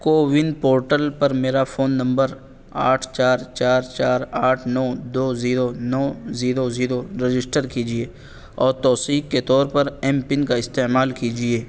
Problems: constant background noise